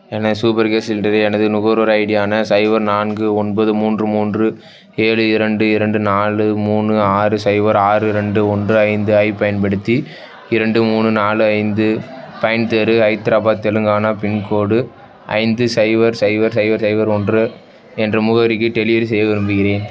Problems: background sounds at intervals, background conversations at intervals